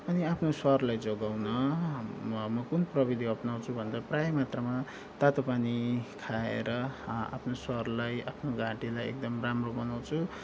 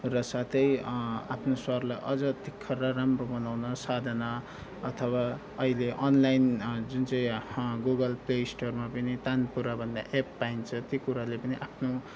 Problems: background sounds at intervals